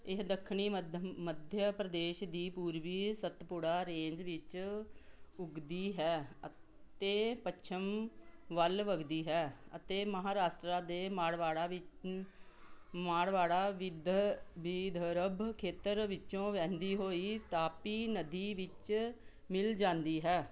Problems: none marked